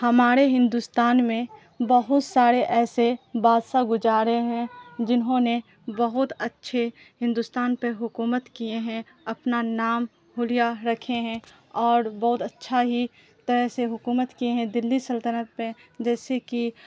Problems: constant background noise